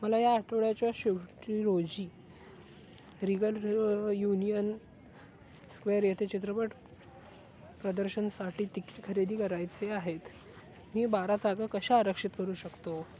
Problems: constant background noise, background conversations at intervals